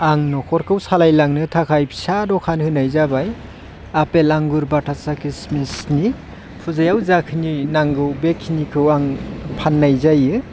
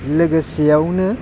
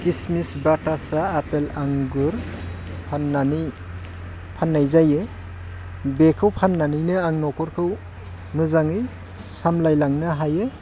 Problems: constant background noise